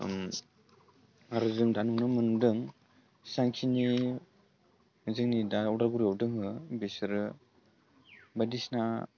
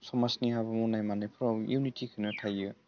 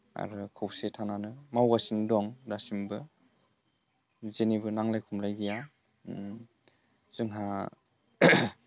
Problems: low volume